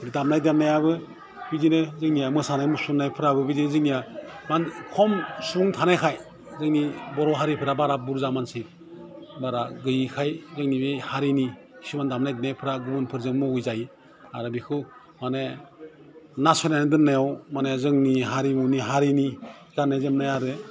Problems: constant background noise